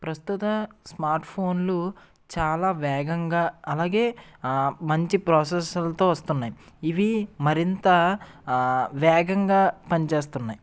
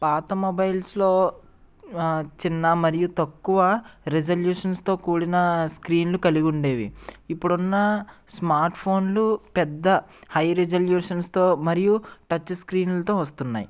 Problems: none marked